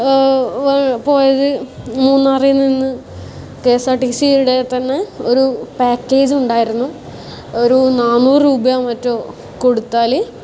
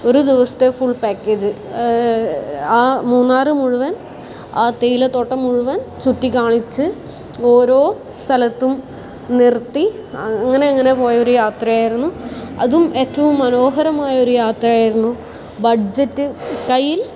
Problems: constant background noise